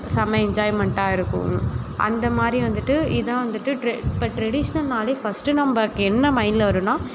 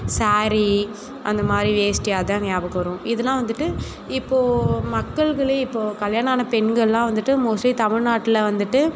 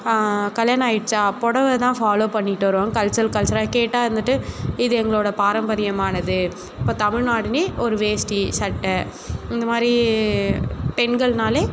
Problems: constant background noise